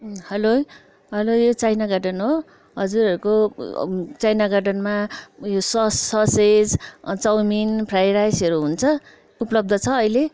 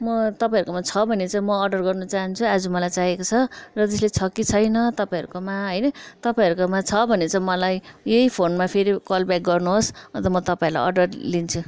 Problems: background sounds at intervals